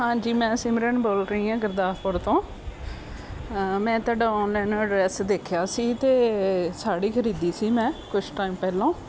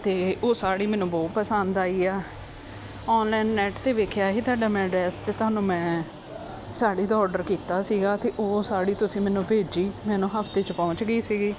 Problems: constant background noise